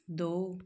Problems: none marked